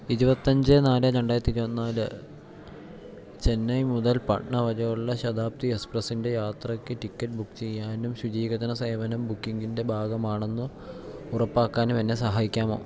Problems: low volume